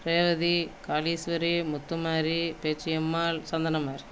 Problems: none marked